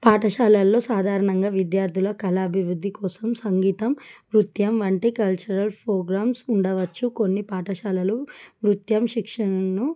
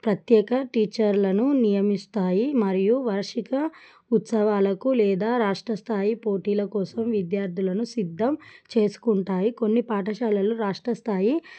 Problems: none marked